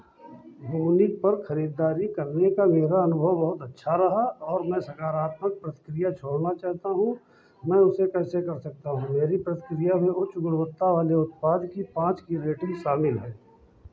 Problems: background sounds at intervals, background conversations at intervals, low volume